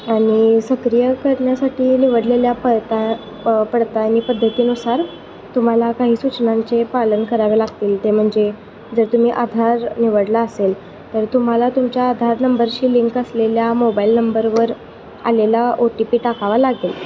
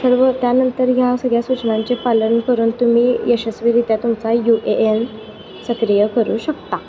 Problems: constant background noise